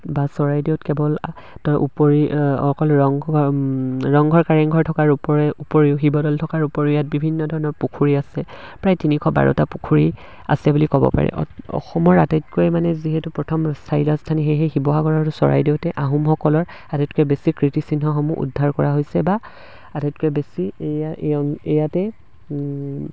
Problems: background sounds at intervals